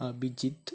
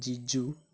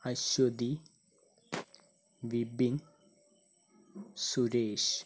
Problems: low volume